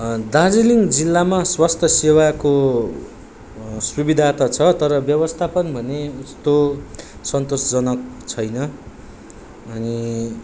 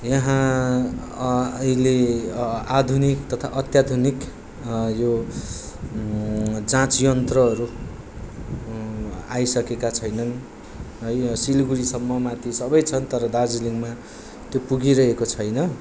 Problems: constant background noise